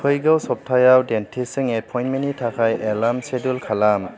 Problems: none marked